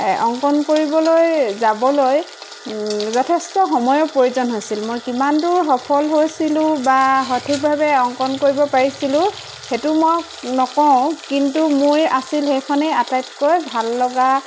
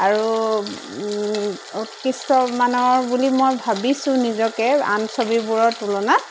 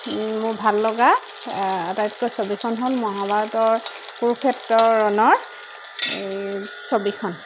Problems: constant background noise